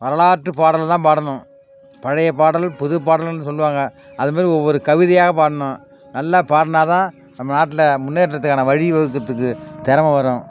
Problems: background sounds at intervals